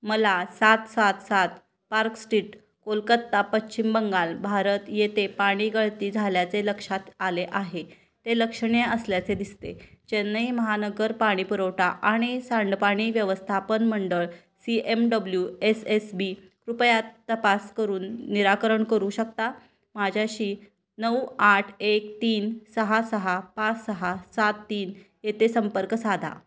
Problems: none marked